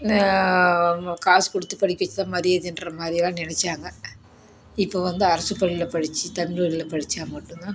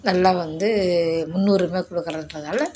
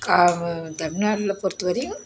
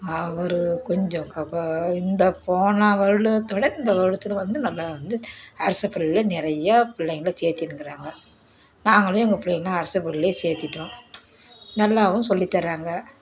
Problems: background sounds at intervals